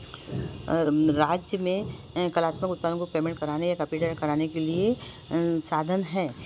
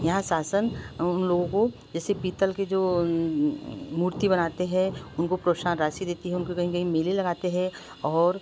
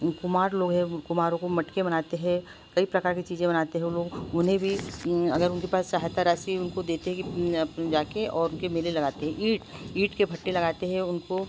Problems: constant background noise